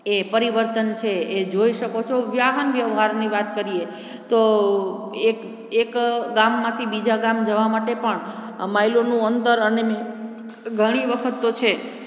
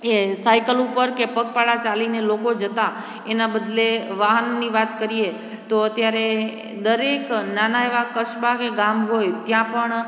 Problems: constant background noise